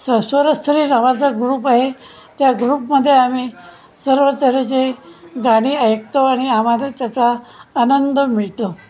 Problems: constant background noise, continuous background conversations